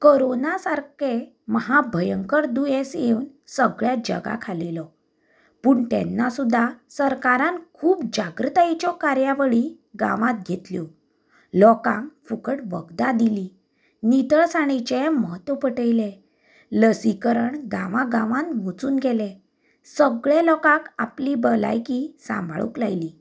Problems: background sounds at intervals